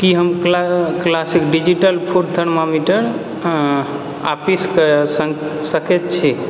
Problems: background sounds at intervals